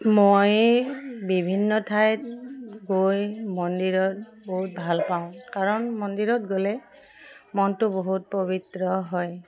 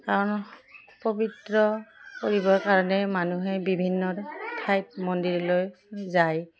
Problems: none marked